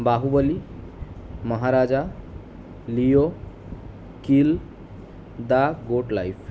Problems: constant background noise